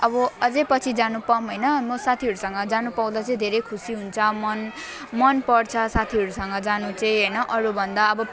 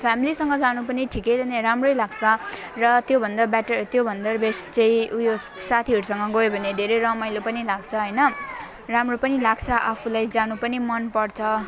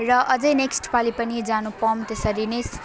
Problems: constant background noise, continuous background conversations